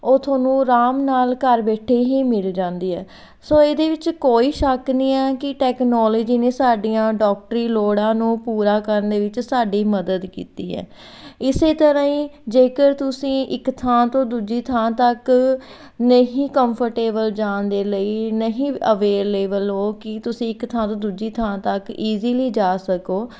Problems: background sounds at intervals